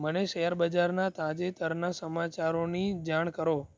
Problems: none marked